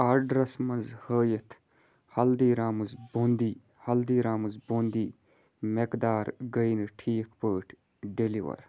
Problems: none marked